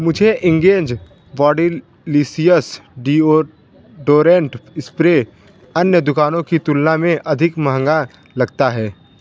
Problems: none marked